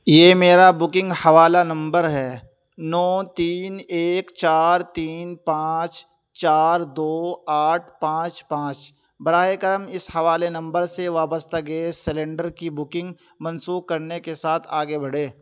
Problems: constant background noise